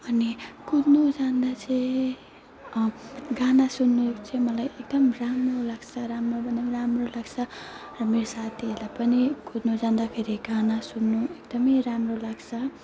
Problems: background sounds at intervals